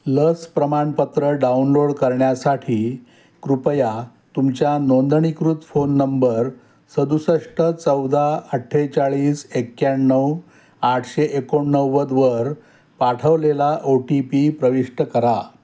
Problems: none marked